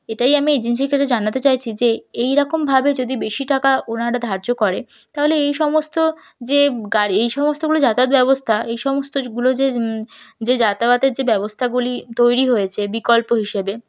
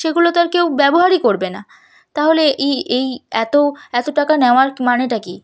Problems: none marked